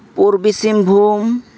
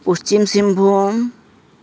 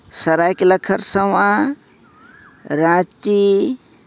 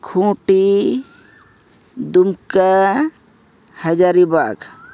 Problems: background sounds at intervals